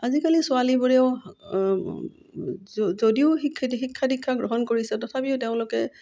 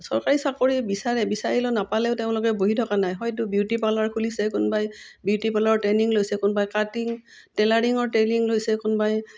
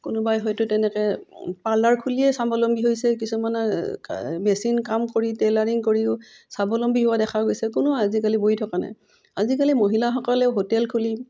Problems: none marked